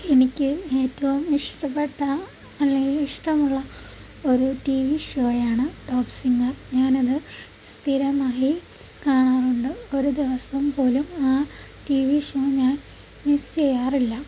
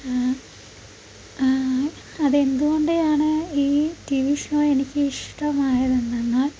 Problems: constant background noise, low volume